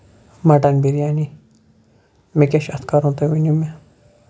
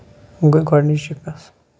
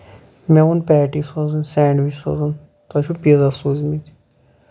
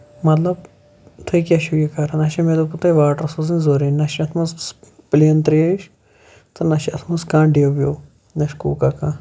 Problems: none marked